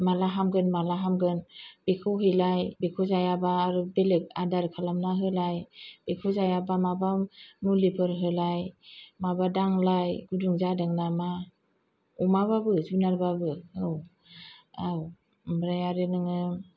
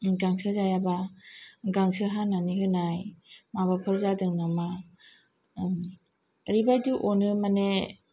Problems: none marked